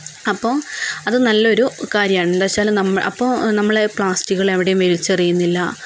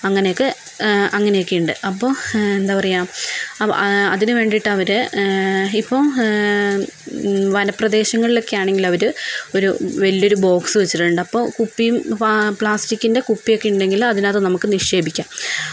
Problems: constant background noise